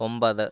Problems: none marked